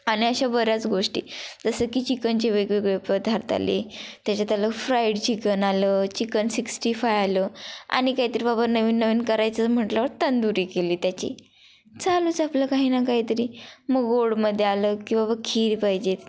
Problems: constant background noise, continuous background conversations